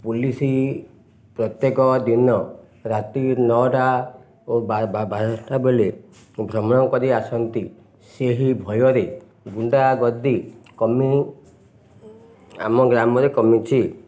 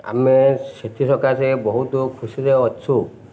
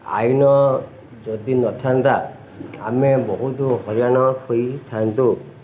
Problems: none marked